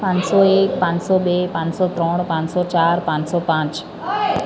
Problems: constant background noise, continuous background conversations